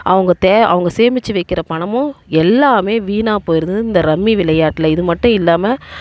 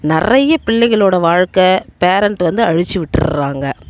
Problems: none marked